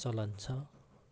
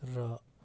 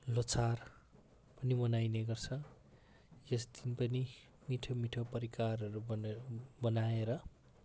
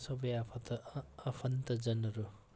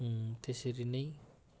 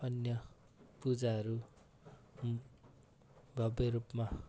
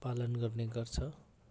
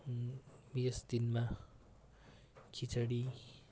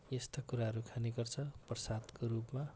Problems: constant background noise